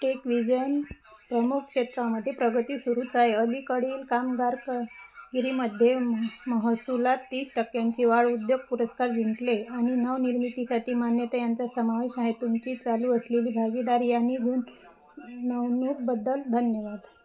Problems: constant background noise